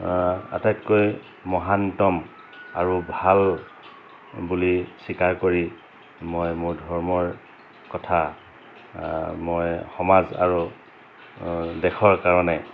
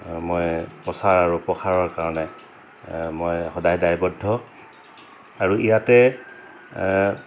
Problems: constant background noise